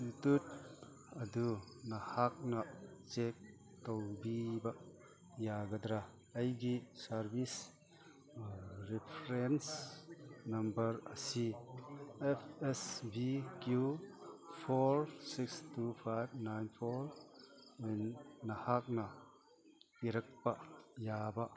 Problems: background sounds at intervals, background conversations at intervals